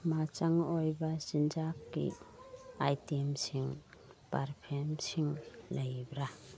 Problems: background sounds at intervals, background conversations at intervals